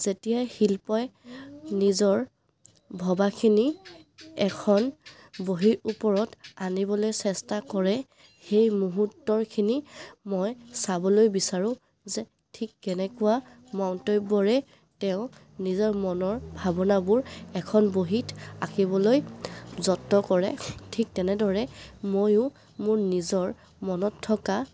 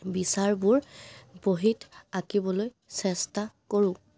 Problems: background sounds at intervals